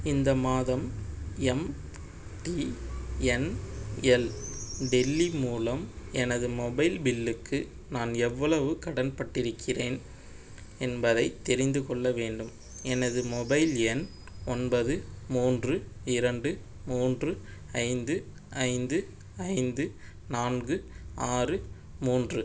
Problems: none marked